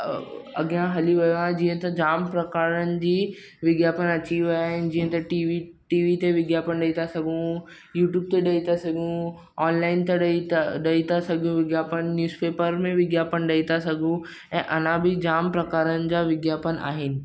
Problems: constant background noise